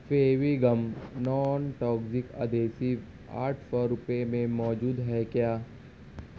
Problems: constant background noise, low volume